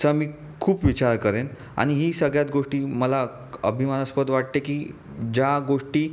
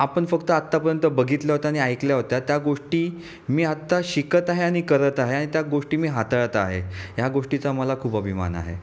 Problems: none marked